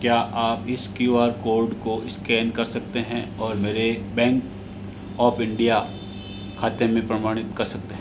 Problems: constant background noise